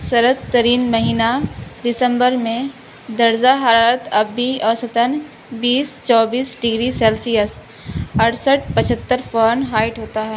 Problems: constant background noise